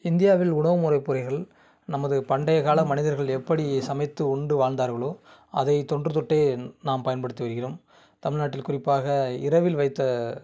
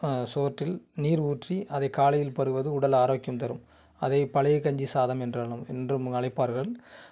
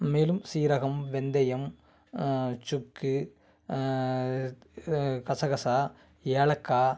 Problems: background sounds at intervals